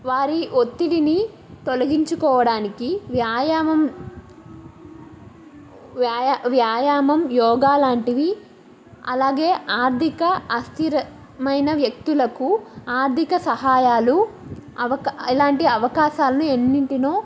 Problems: none marked